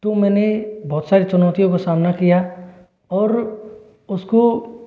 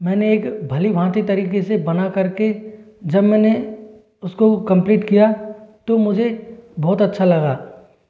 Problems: echo